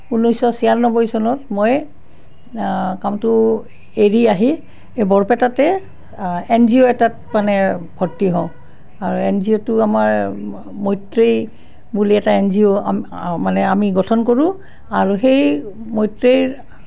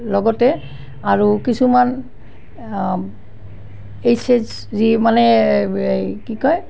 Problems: constant background noise